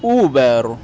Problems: none marked